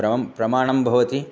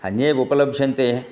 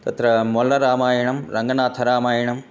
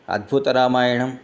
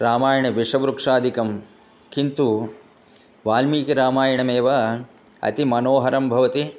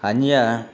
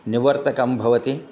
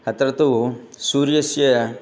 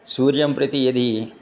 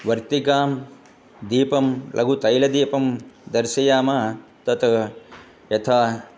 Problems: none marked